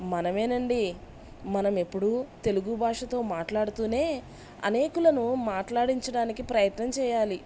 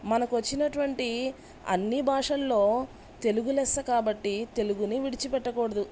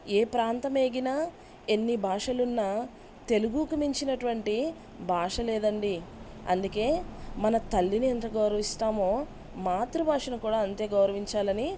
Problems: none marked